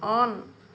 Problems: constant background noise